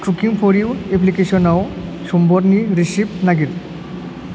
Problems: constant background noise